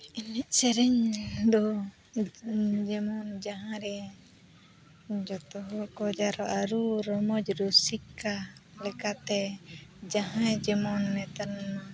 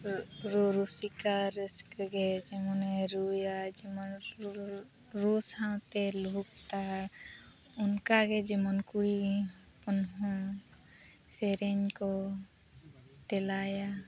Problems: constant background noise, continuous background conversations, low volume